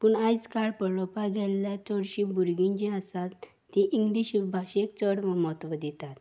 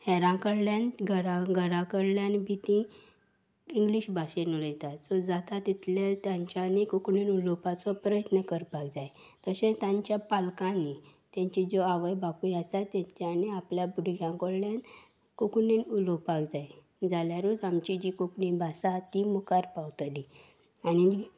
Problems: none marked